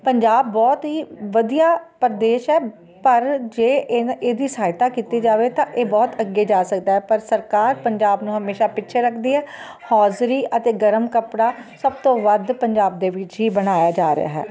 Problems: constant background noise